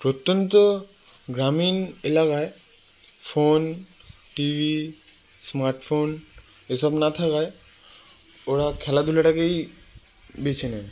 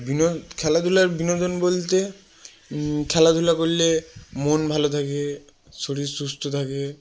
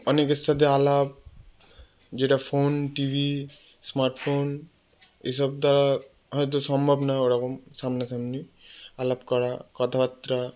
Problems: background sounds at intervals